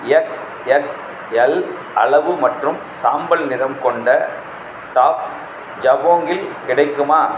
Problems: constant background noise